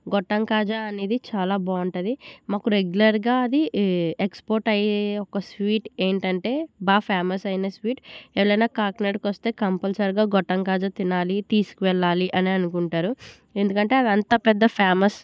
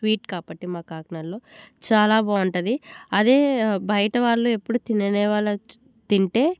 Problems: none marked